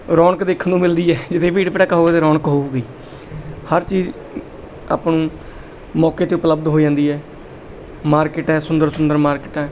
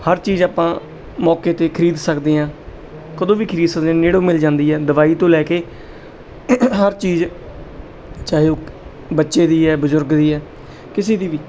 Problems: background sounds at intervals